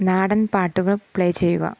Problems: constant background noise